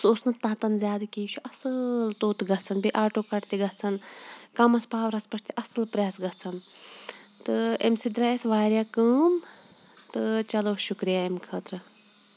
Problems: background sounds at intervals